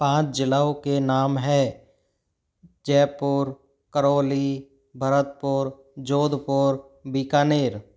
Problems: background sounds at intervals